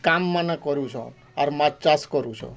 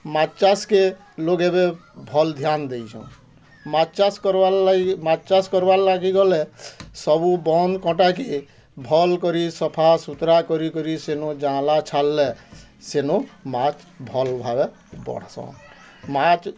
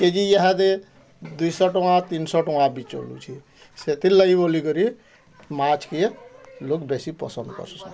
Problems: constant background noise, continuous background conversations